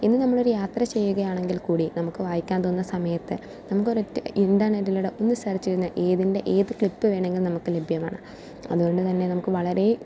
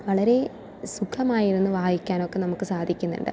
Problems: none marked